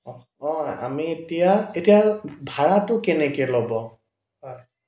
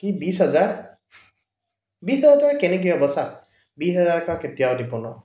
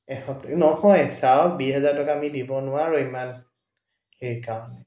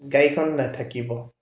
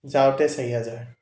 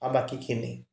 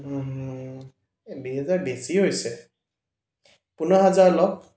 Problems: echo